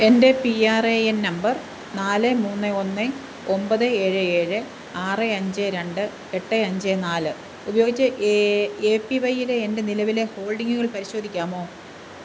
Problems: constant background noise